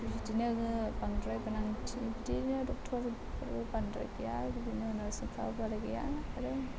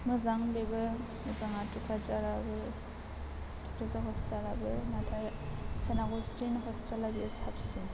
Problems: constant background noise, low volume